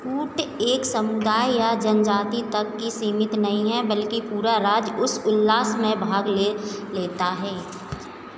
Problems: constant background noise